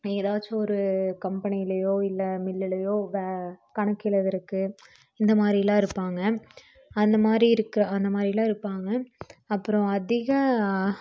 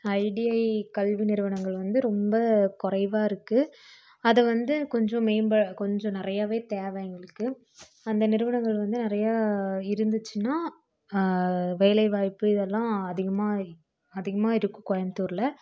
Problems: none marked